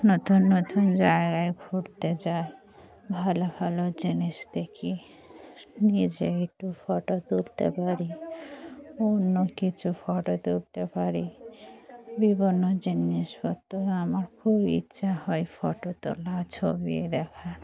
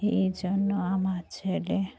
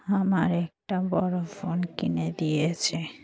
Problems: none marked